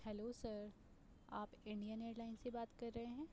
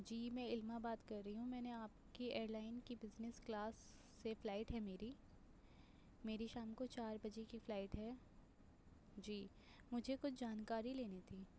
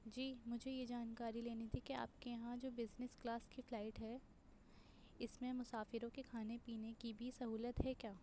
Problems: constant background noise, low volume